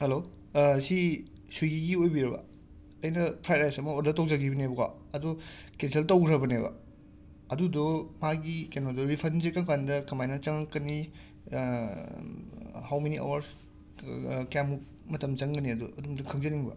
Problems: constant background noise